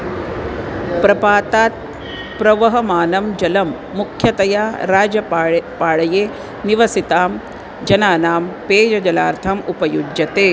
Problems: none marked